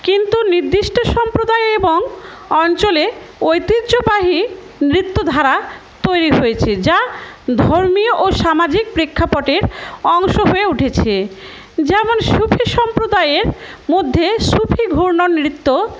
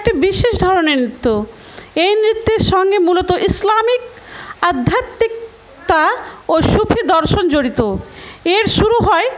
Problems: constant background noise, background conversations at intervals